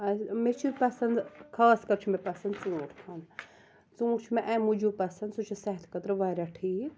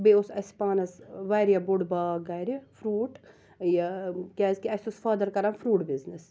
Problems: background sounds at intervals